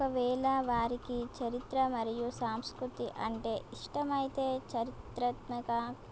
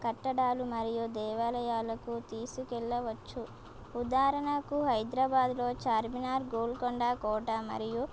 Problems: constant background noise